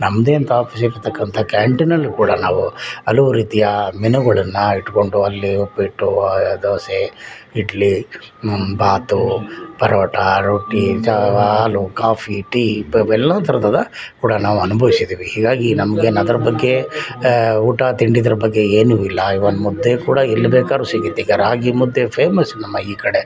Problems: background conversations at intervals